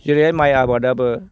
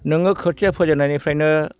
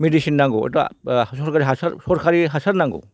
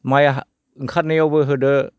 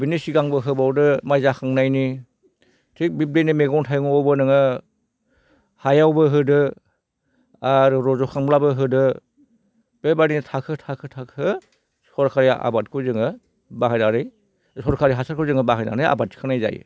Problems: none marked